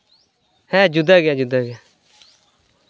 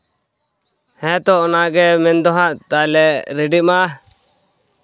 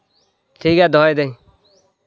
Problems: none marked